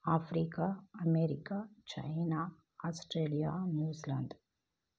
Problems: low volume